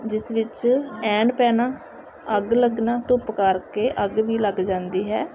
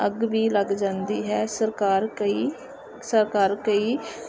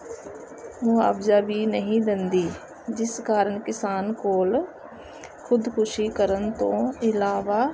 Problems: none marked